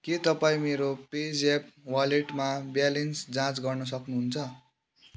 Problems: none marked